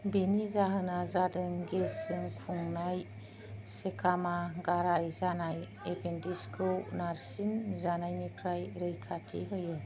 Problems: low volume